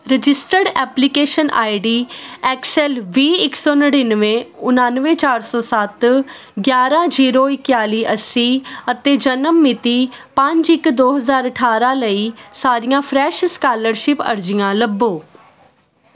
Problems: constant background noise